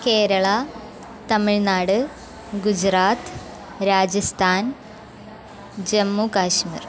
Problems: constant background noise